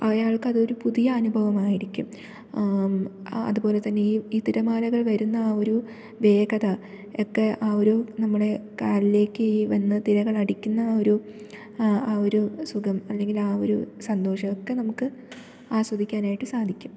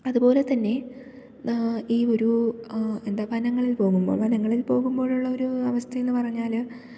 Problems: none marked